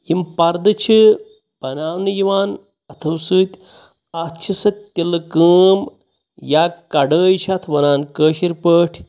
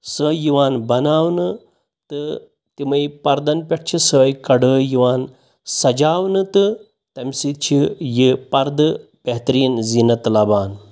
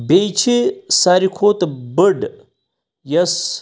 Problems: none marked